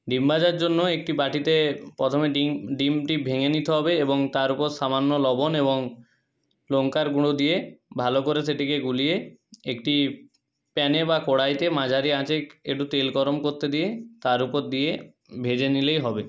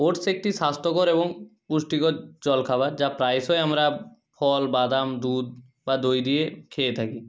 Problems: none marked